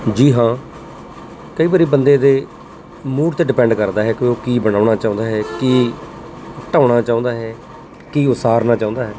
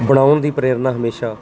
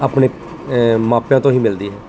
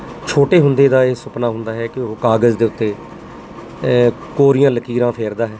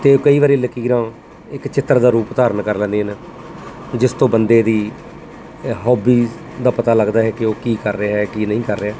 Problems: constant background noise